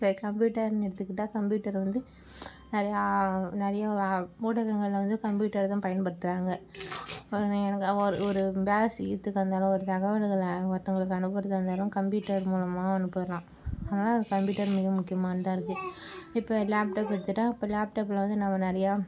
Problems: background sounds at intervals